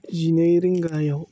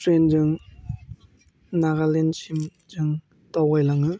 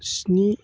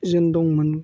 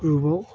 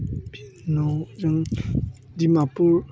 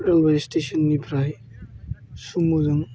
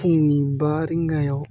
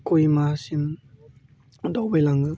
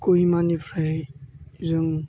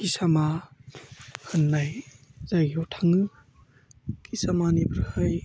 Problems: low volume